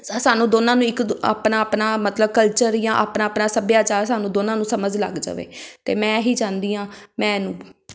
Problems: background sounds at intervals